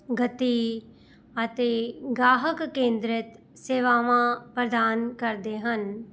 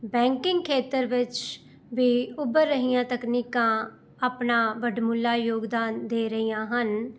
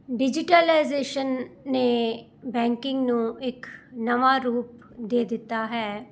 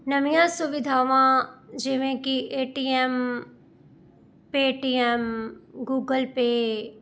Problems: none marked